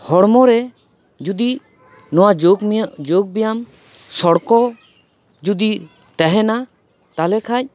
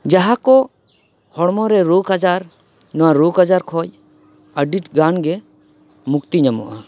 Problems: background sounds at intervals